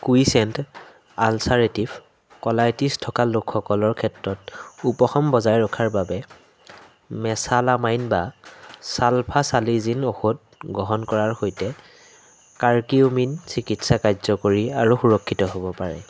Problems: constant background noise